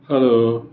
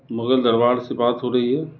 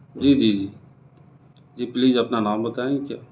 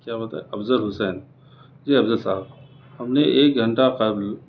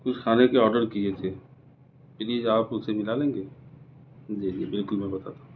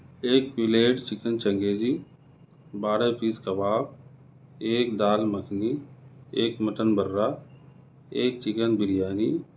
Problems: none marked